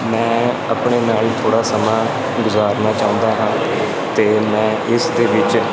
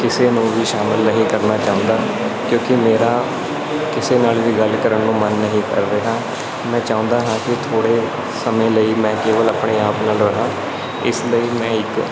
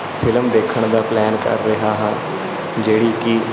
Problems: constant background noise